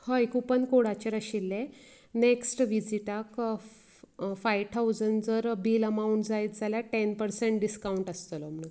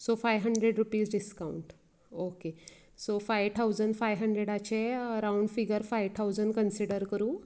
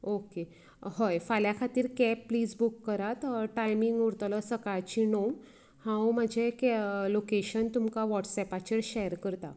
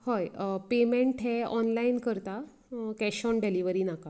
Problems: none marked